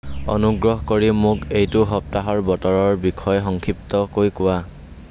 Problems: constant background noise